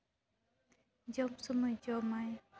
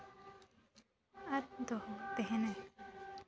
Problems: background sounds at intervals